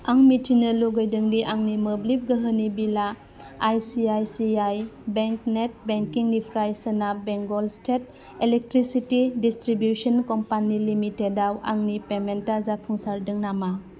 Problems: constant background noise